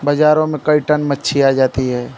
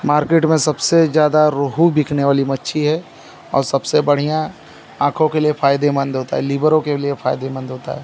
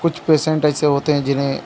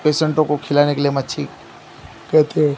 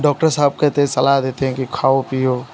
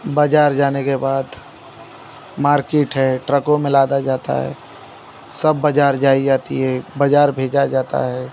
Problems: none marked